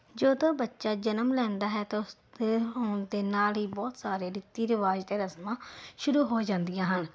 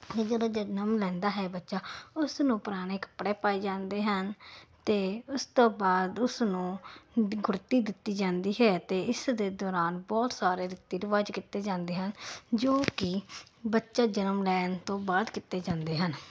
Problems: none marked